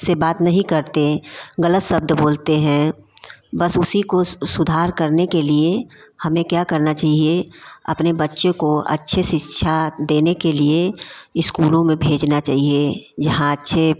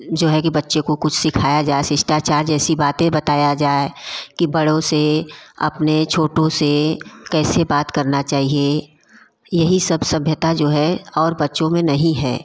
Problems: constant background noise, background conversations at intervals